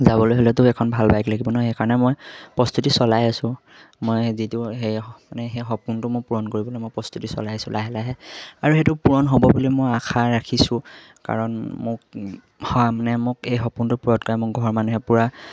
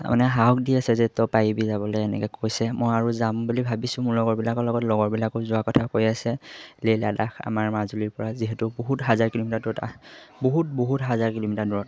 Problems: none marked